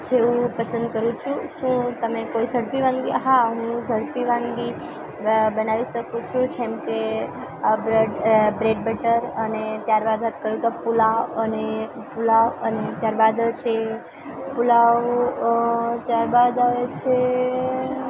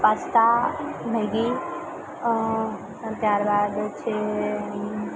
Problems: constant background noise, continuous background conversations